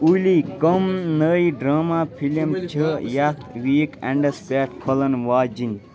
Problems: constant background noise, background conversations at intervals